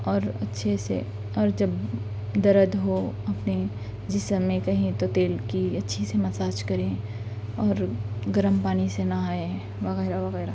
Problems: constant background noise